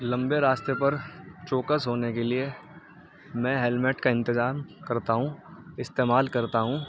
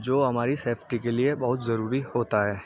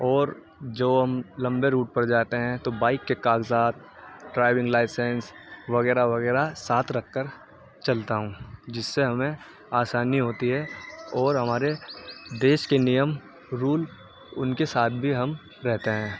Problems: background sounds at intervals, background conversations at intervals, low volume